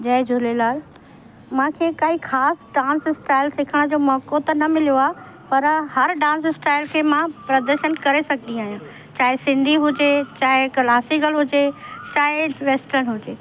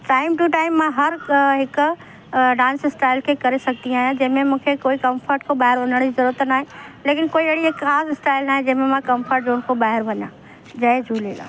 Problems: constant background noise